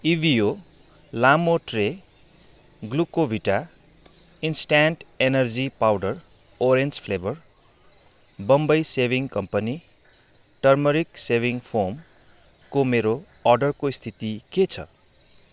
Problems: none marked